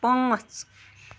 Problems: none marked